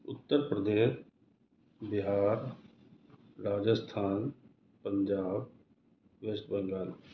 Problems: none marked